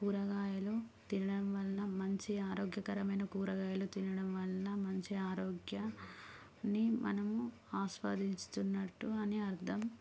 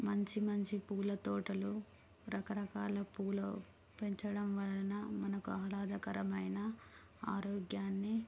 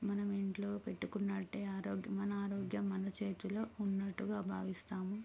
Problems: none marked